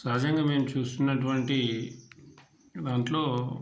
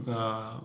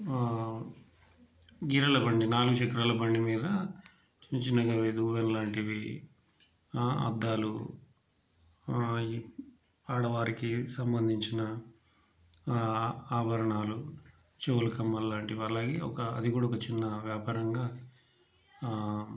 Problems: background sounds at intervals